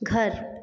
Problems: none marked